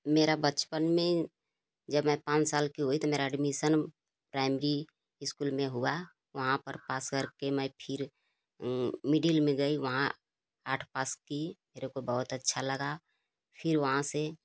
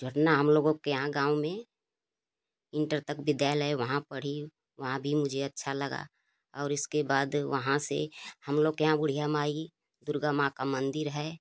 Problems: constant background noise